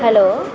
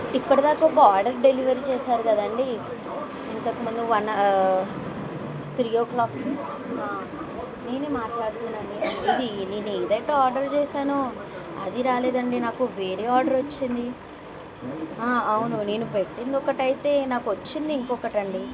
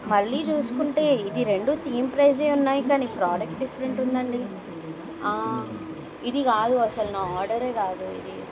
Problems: constant background noise